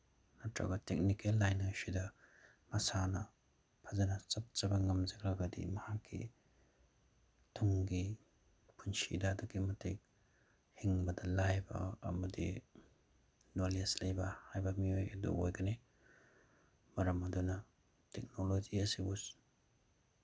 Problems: none marked